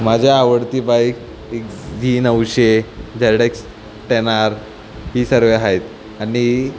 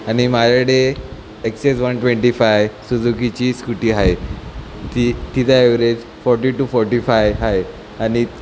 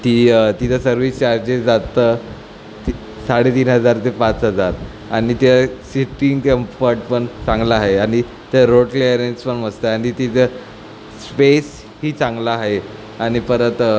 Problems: constant background noise